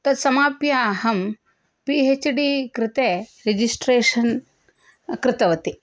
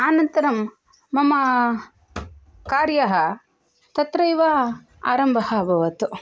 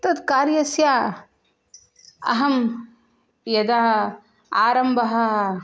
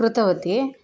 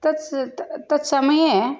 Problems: none marked